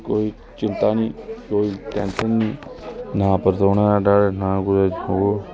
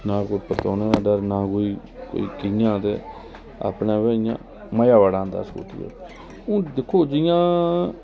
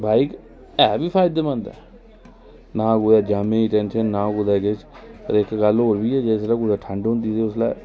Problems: none marked